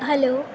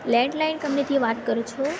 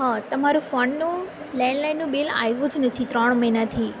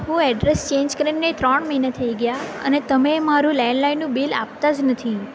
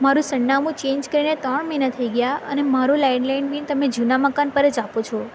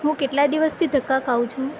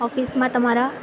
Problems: none marked